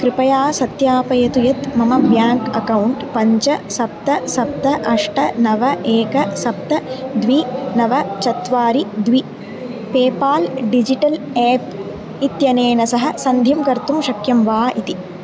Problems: none marked